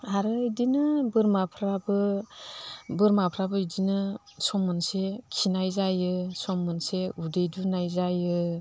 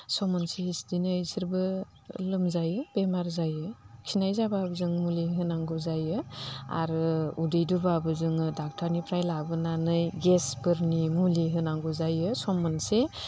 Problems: none marked